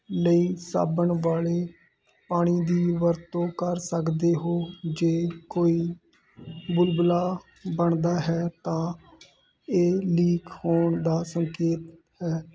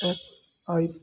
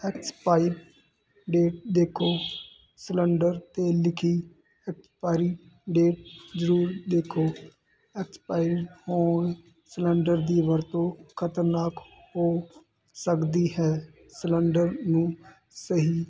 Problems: constant background noise